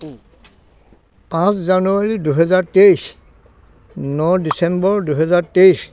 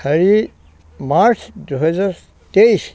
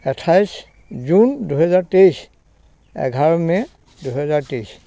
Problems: constant background noise, background conversations at intervals